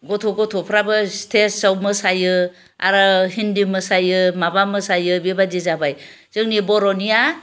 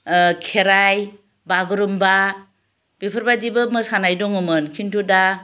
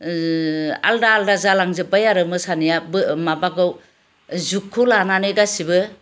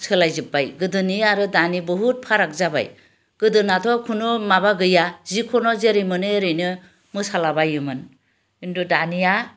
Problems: none marked